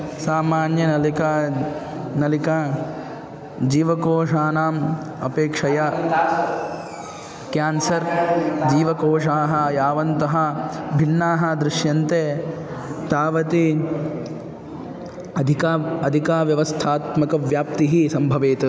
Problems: constant background noise, continuous background conversations